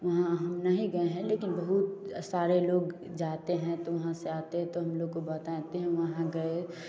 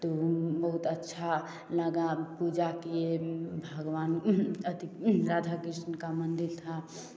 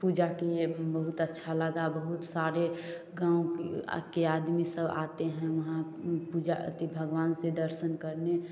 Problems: none marked